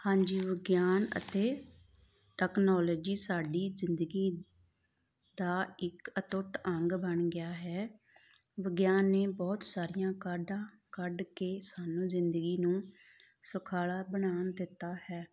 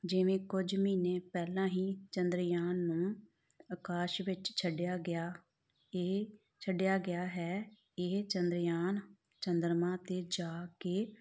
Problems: background sounds at intervals